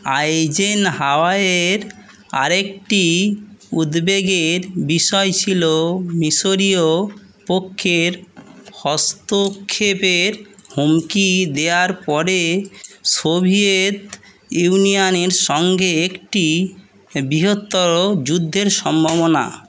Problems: none marked